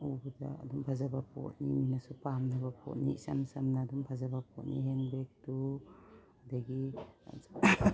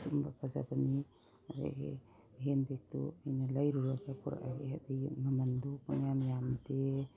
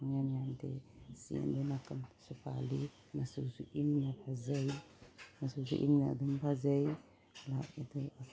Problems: background sounds at intervals